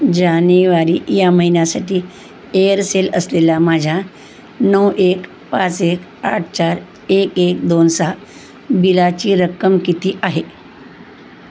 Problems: constant background noise, background conversations at intervals